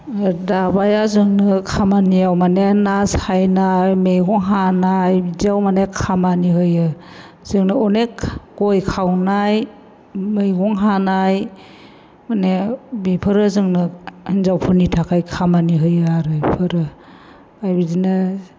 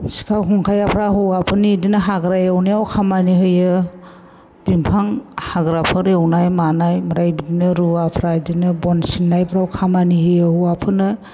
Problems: constant background noise